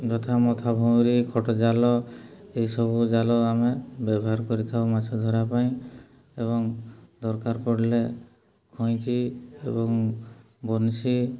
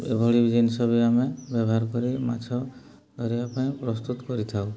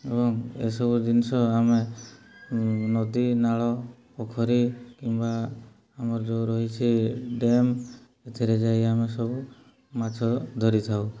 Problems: low volume